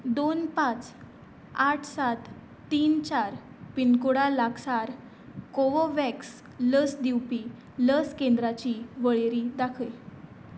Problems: none marked